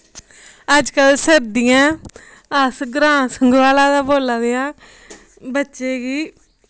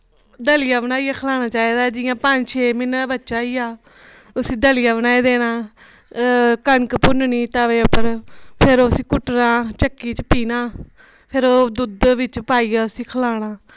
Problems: none marked